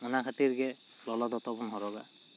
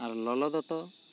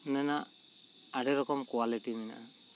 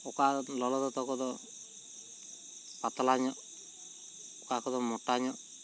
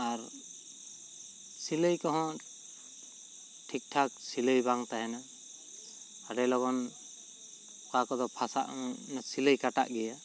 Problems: constant background noise